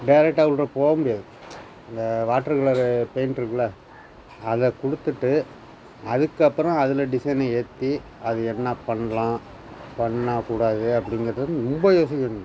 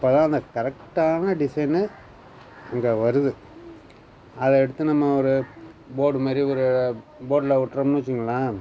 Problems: constant background noise